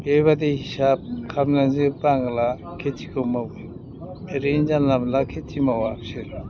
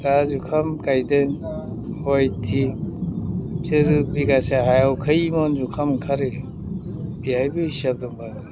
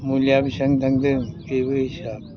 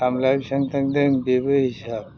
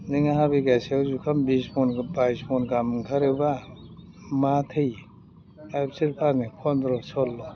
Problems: background sounds at intervals